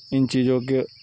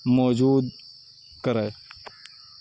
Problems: background sounds at intervals